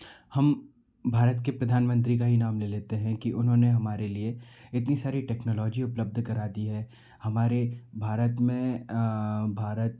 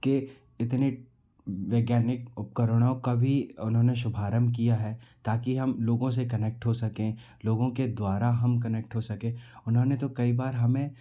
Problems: background sounds at intervals